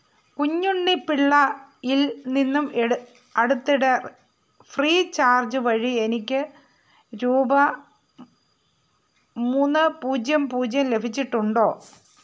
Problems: constant background noise